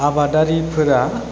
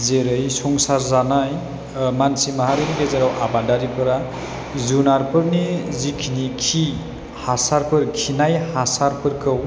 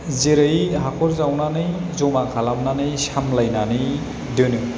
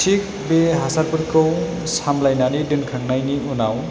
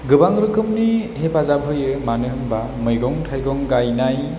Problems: constant background noise